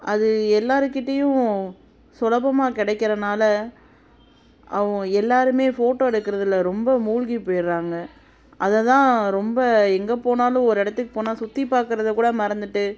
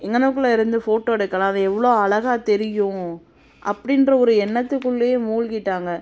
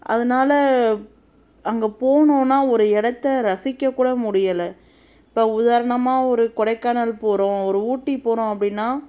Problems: constant background noise